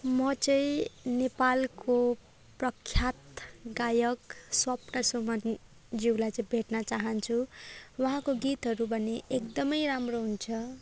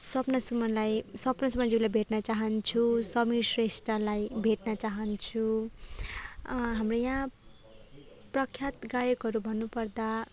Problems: background conversations at intervals